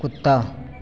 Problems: constant background noise, echo